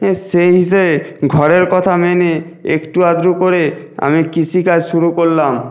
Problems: background sounds at intervals